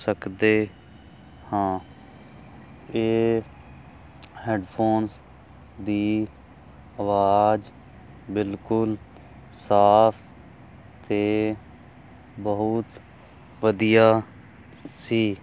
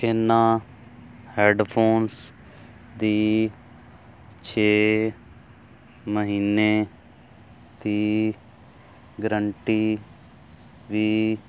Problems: none marked